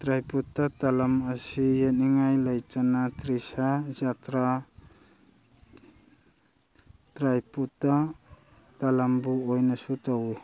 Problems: background sounds at intervals